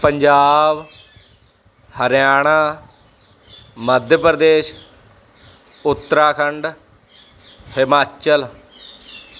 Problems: none marked